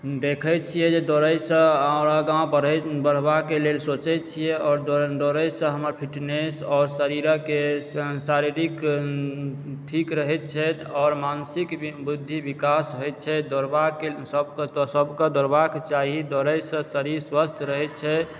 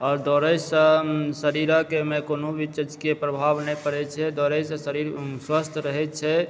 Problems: background sounds at intervals